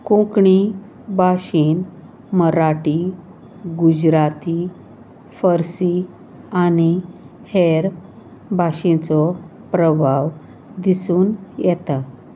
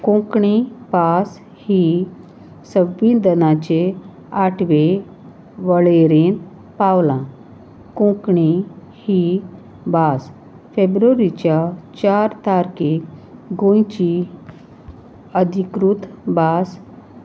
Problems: constant background noise, background conversations at intervals